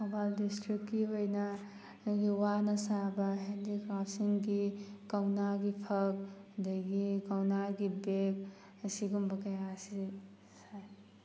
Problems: background sounds at intervals